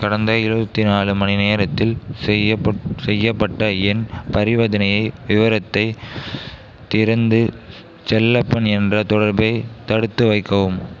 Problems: continuous background conversations